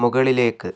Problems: none marked